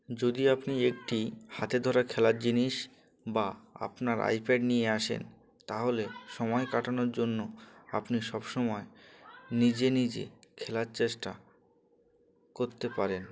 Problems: continuous background conversations